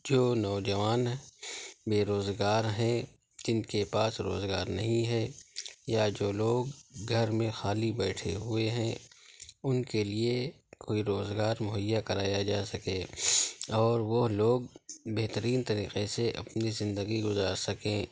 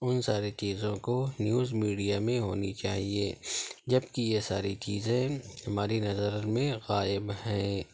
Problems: constant background noise, low volume